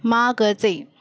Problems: none marked